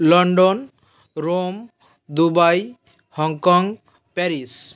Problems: background sounds at intervals